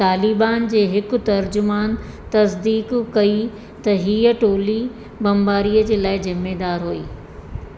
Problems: constant background noise, echo